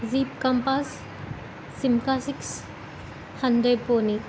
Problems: constant background noise